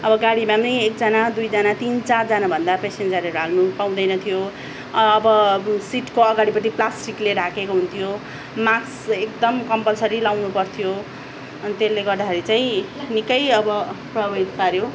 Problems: none marked